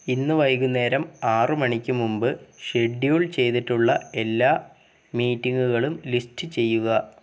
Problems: background sounds at intervals